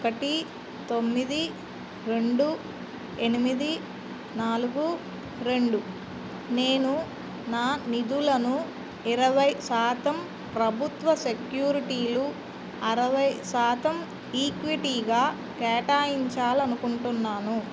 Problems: constant background noise